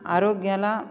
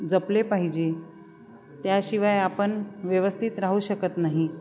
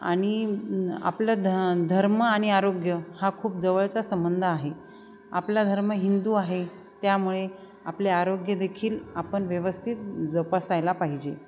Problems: constant background noise, continuous background conversations